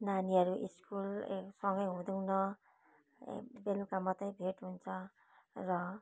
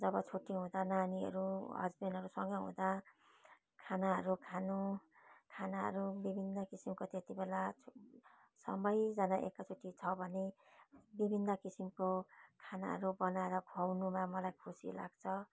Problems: constant background noise